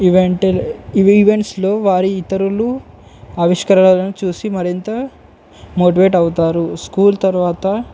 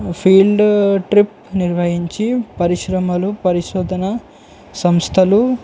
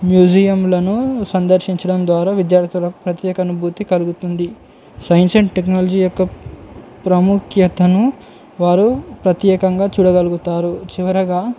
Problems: none marked